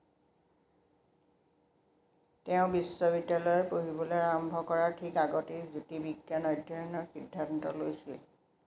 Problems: constant background noise